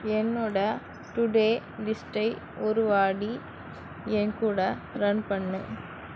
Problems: constant background noise